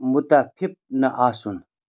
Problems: none marked